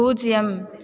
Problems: none marked